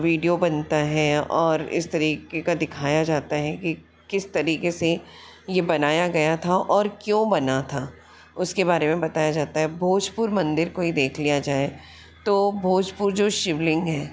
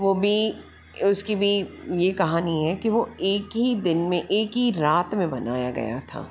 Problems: constant background noise